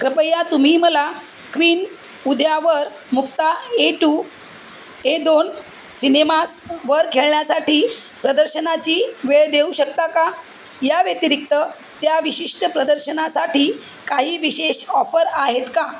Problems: constant background noise, background conversations at intervals